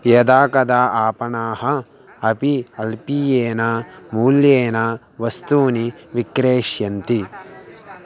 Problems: continuous background conversations